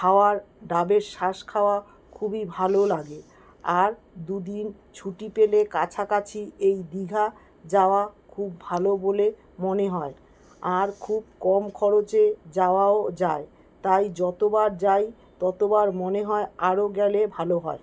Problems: none marked